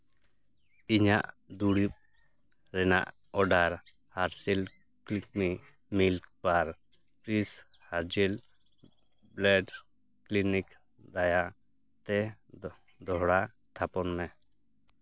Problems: background sounds at intervals